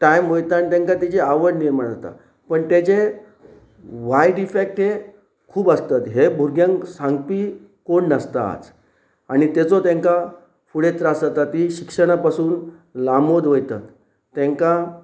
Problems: none marked